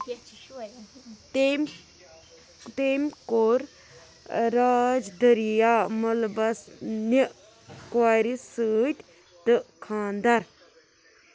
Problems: background sounds at intervals, background conversations at intervals